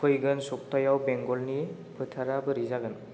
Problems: constant background noise